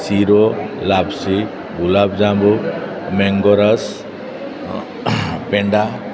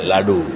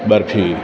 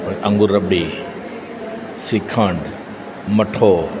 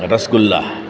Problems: none marked